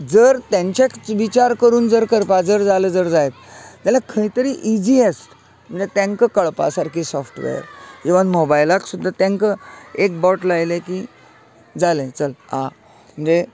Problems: constant background noise